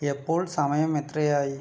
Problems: low volume